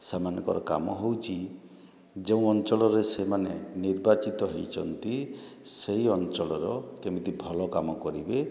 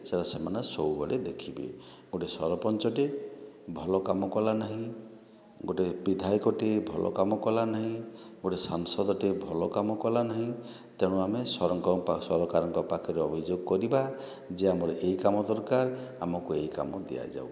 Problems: none marked